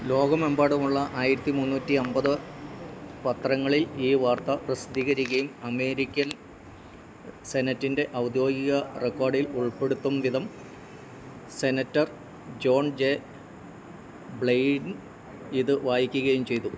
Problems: none marked